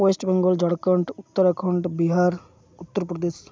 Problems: constant background noise